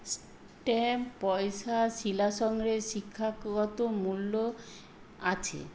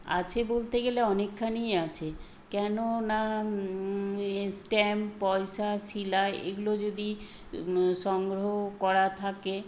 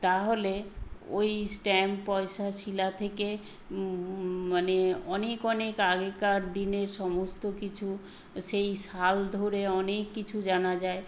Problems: constant background noise